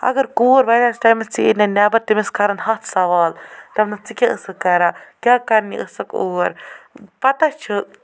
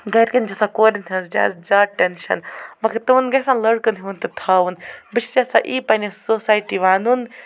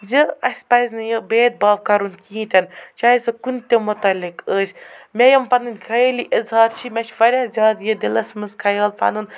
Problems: none marked